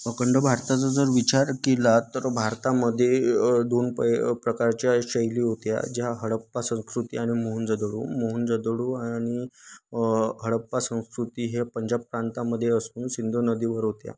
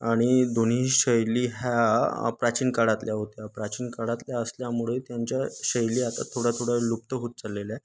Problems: constant background noise, background conversations at intervals